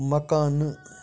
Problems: background conversations at intervals